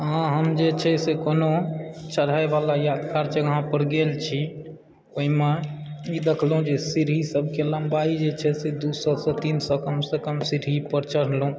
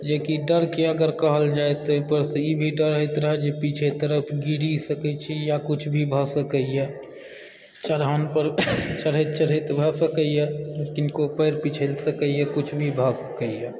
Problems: background sounds at intervals, background conversations at intervals